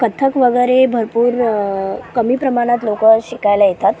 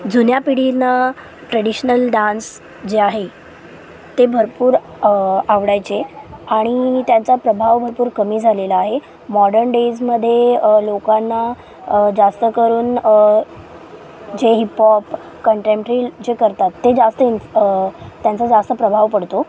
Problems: constant background noise, continuous background conversations, low volume